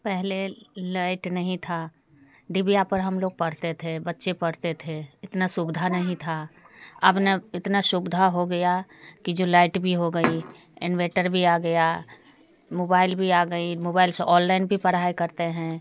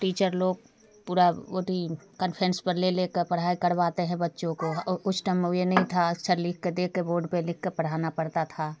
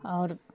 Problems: none marked